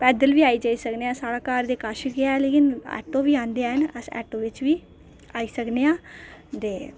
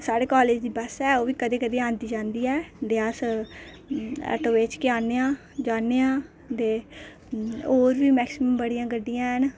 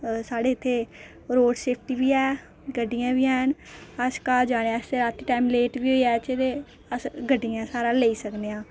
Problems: none marked